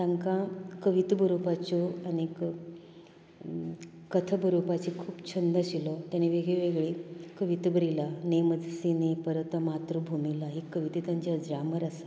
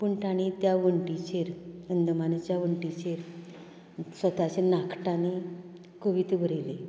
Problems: constant background noise